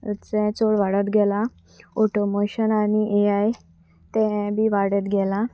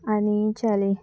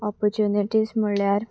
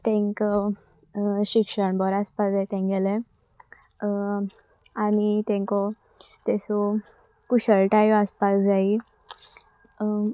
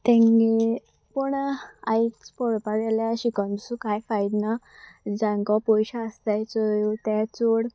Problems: constant background noise